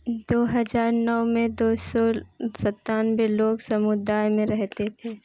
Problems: constant background noise